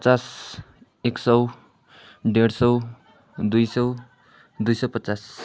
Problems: constant background noise